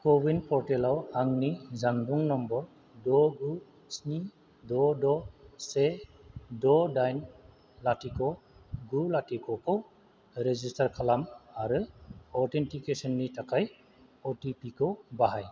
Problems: constant background noise